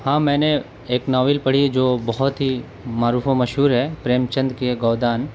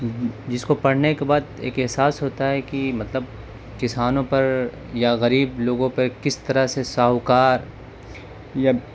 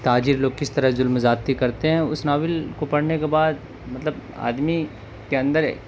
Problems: constant background noise